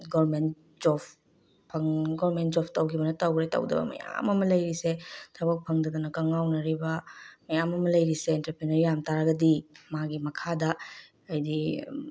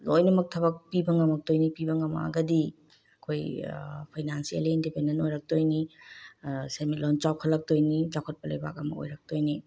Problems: none marked